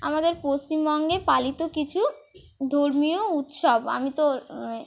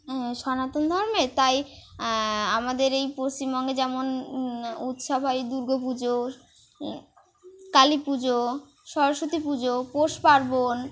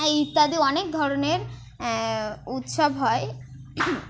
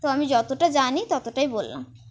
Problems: none marked